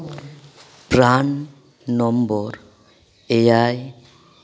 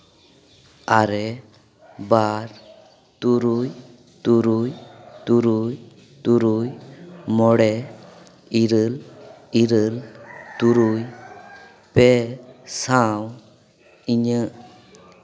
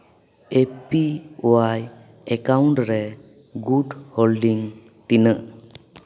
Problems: background sounds at intervals, echo